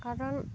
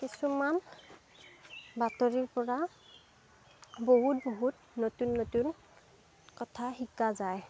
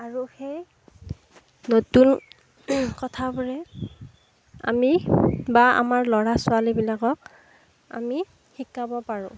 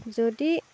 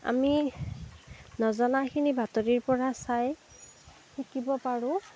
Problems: background sounds at intervals